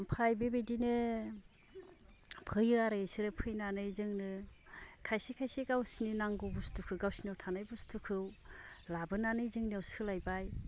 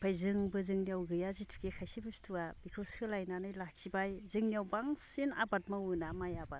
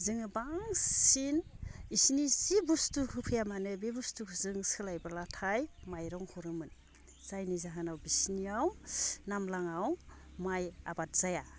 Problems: low volume